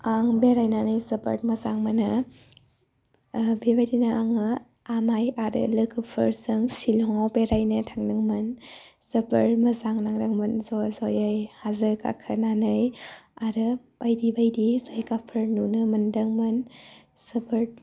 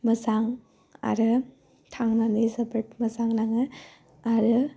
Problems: low volume